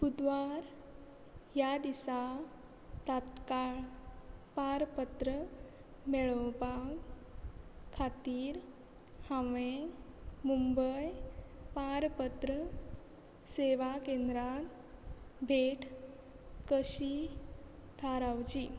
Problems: none marked